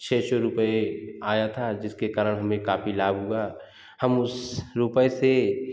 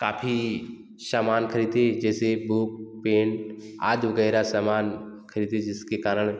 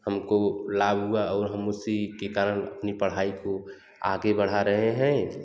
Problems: background sounds at intervals, echo